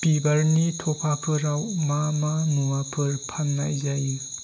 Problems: constant background noise